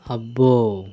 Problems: constant background noise